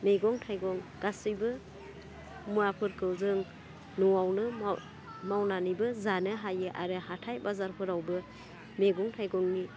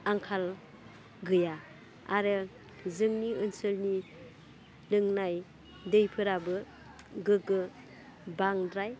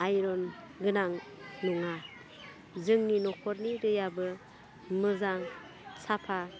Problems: low volume